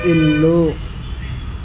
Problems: constant background noise